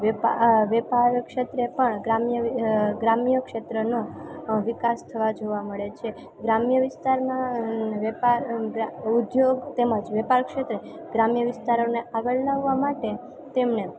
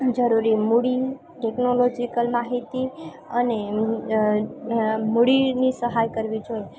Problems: constant background noise, continuous background conversations